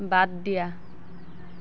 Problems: constant background noise